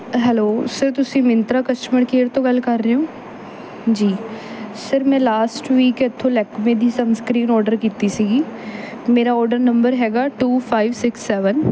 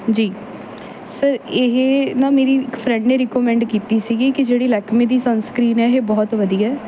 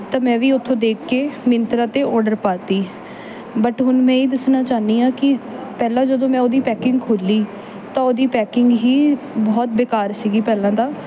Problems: none marked